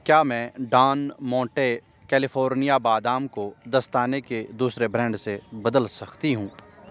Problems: constant background noise